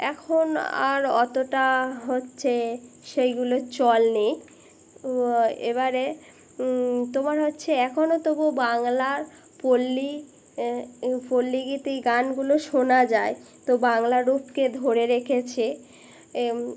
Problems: constant background noise